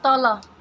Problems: constant background noise